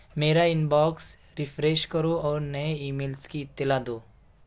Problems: none marked